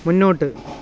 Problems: background sounds at intervals